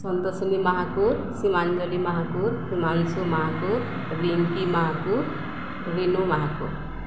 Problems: none marked